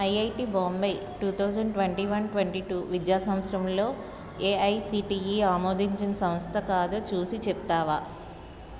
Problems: none marked